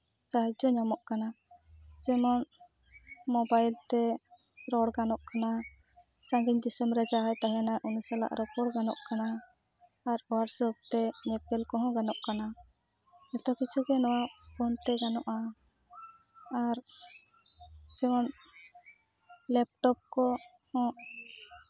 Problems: background sounds at intervals